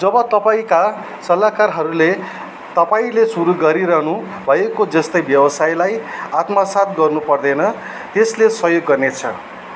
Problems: background sounds at intervals